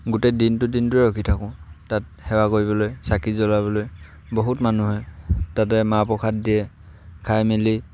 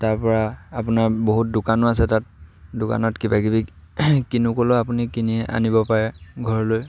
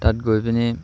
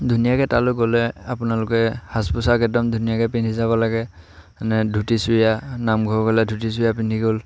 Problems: none marked